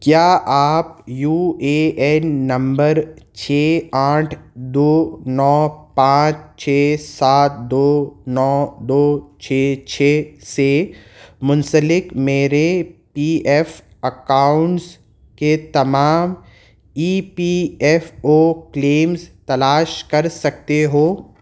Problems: none marked